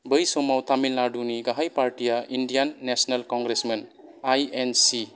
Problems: background conversations at intervals